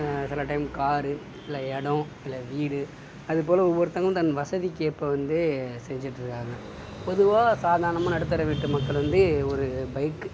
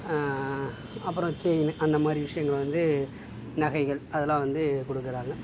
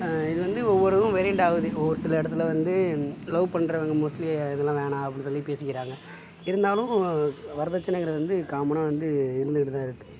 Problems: background sounds at intervals